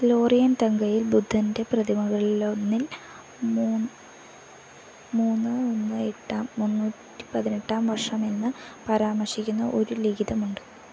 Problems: constant background noise